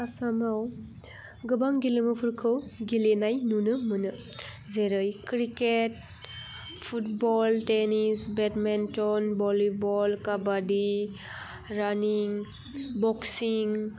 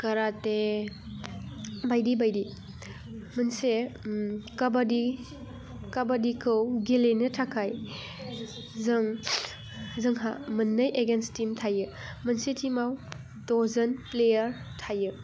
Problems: none marked